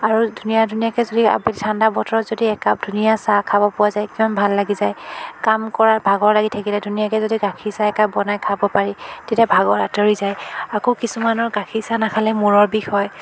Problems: background sounds at intervals, continuous background conversations